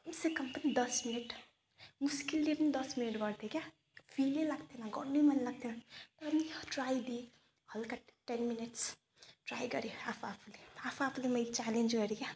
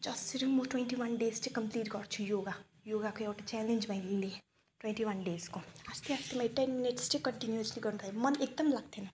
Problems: none marked